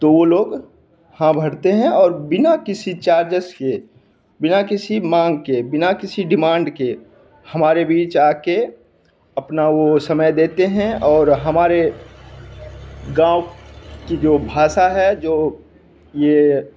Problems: none marked